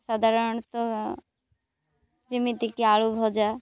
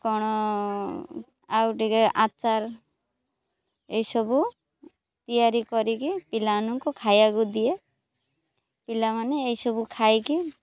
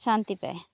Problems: background sounds at intervals, background conversations at intervals